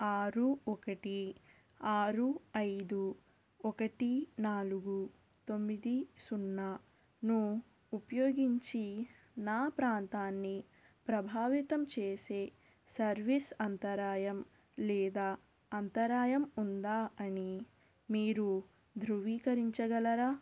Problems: constant background noise, low volume